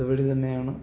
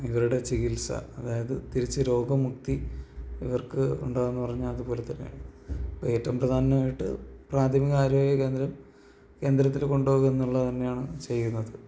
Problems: background sounds at intervals